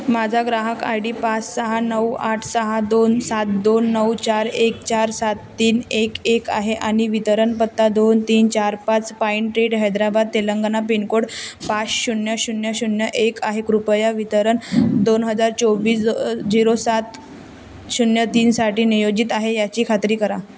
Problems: constant background noise, background conversations at intervals